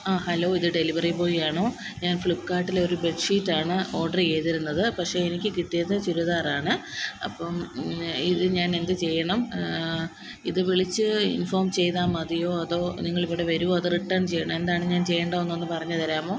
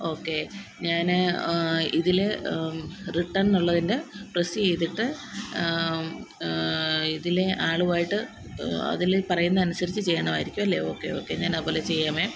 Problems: constant background noise